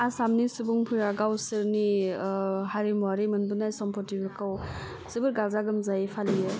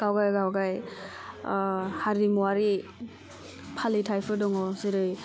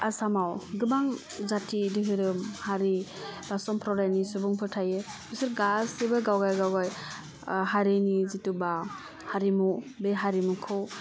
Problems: low volume